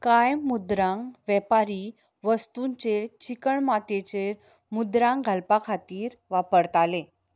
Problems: background sounds at intervals